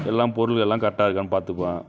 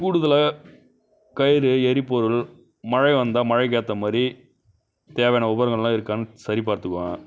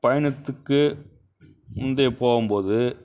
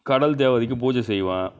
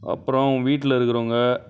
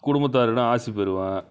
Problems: constant background noise